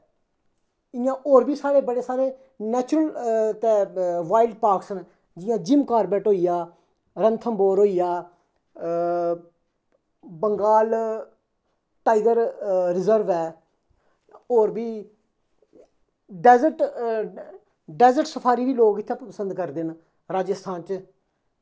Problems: echo